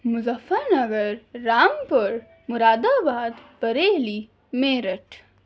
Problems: background sounds at intervals